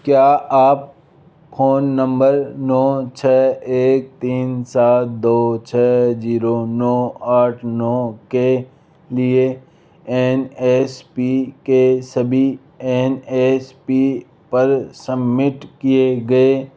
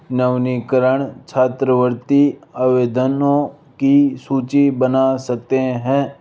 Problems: none marked